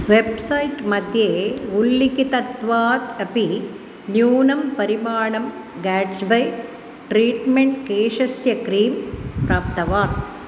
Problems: none marked